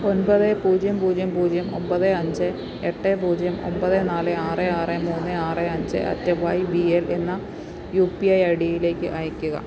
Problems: none marked